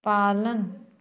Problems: background conversations at intervals